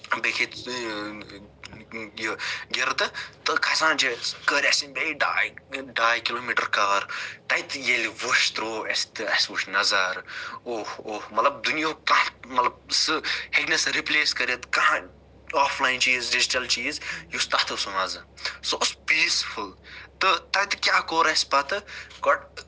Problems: none marked